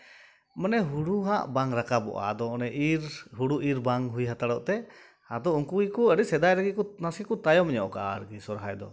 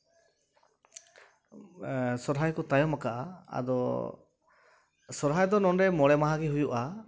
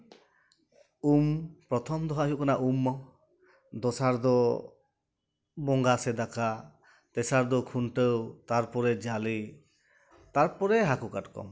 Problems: background sounds at intervals